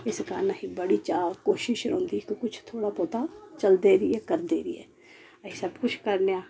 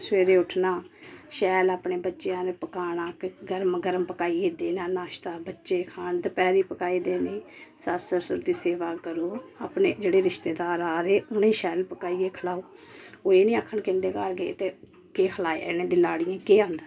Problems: none marked